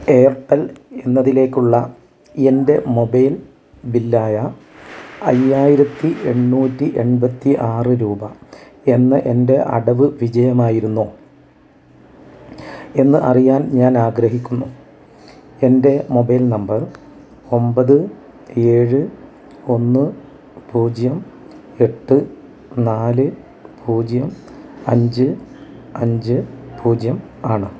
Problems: low volume